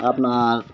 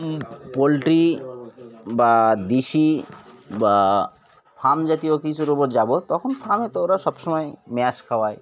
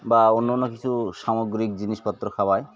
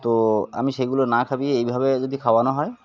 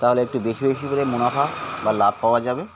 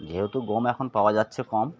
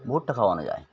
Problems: constant background noise